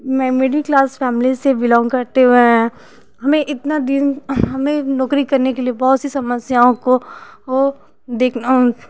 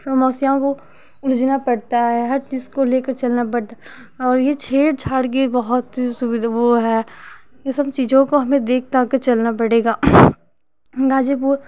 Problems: constant background noise